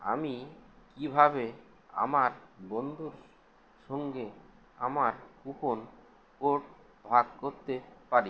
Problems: none marked